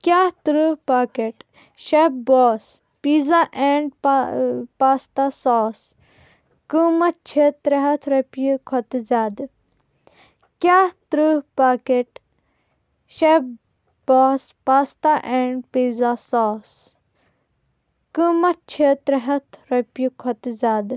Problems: constant background noise